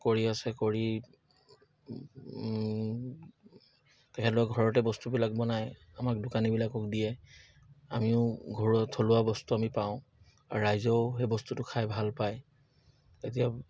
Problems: none marked